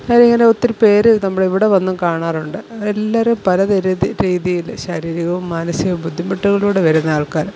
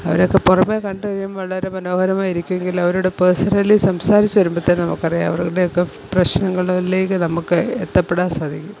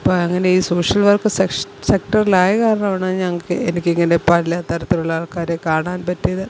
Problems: constant background noise